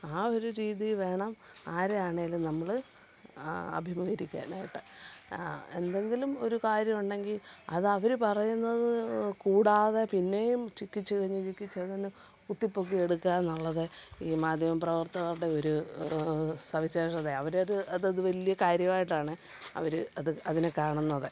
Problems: background sounds at intervals